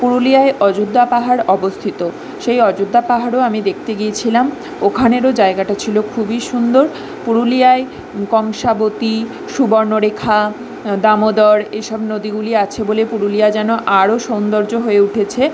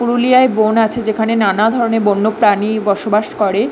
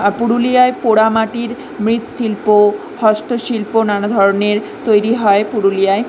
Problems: background sounds at intervals